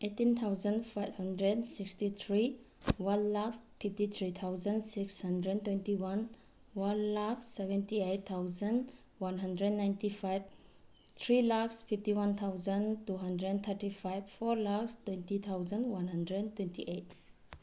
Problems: none marked